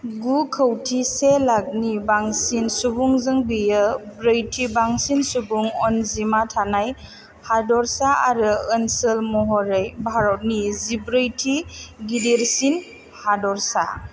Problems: none marked